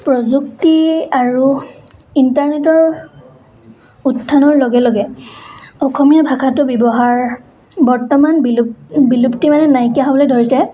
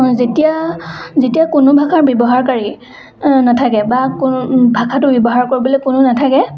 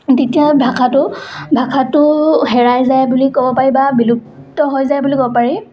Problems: constant background noise, background conversations at intervals